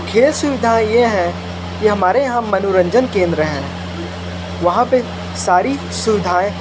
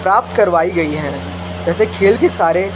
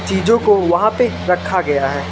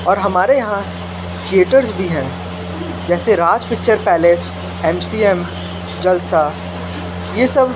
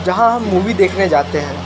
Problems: constant background noise